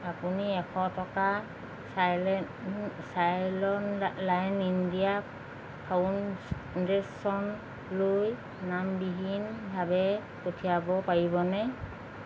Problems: constant background noise, background conversations at intervals